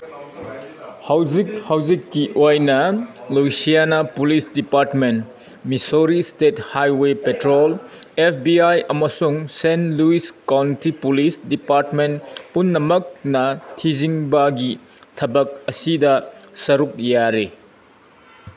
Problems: background sounds at intervals